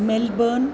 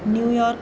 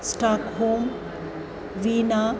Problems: constant background noise, continuous background conversations